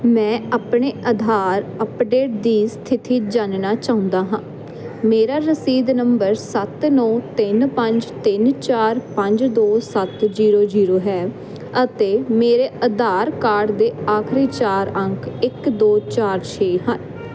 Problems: constant background noise